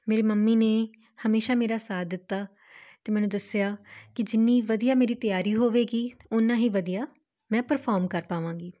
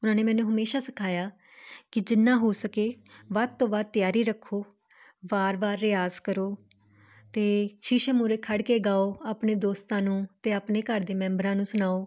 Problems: constant background noise